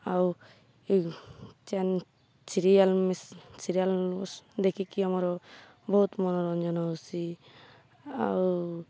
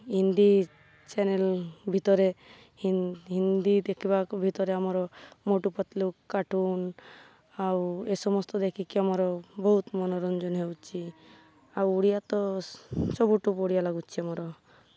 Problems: none marked